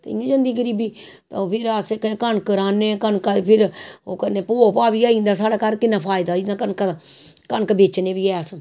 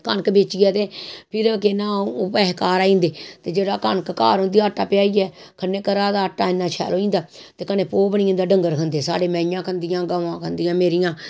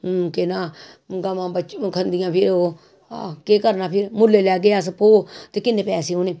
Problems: none marked